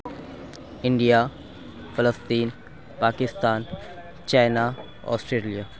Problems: none marked